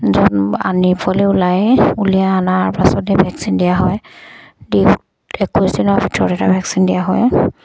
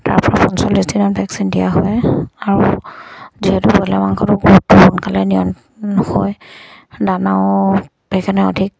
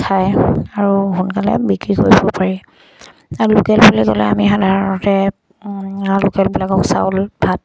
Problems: none marked